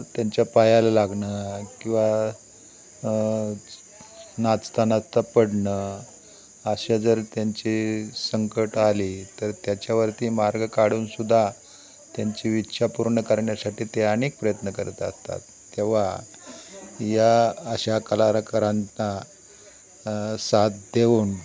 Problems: constant background noise, background conversations at intervals